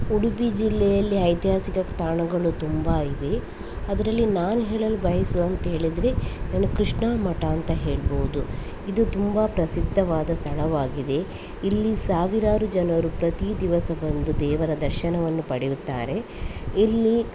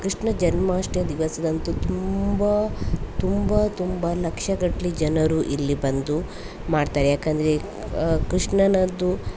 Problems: constant background noise